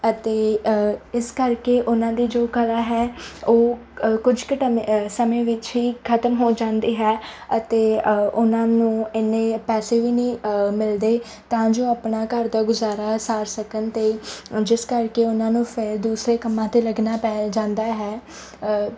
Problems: none marked